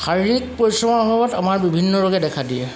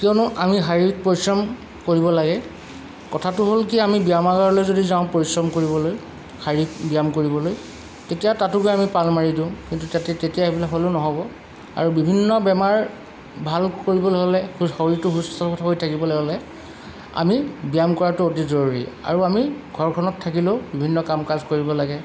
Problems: none marked